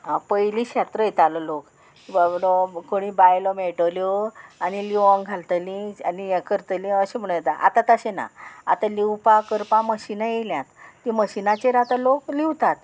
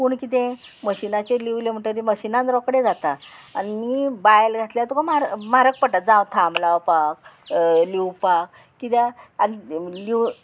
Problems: none marked